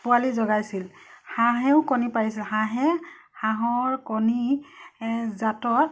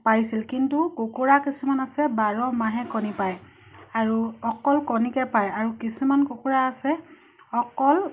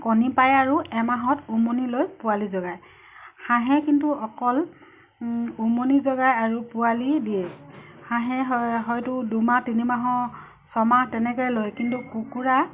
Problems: constant background noise